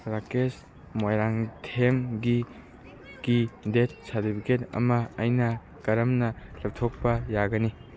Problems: none marked